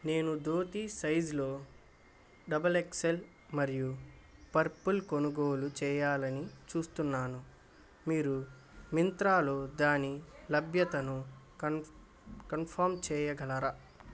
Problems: constant background noise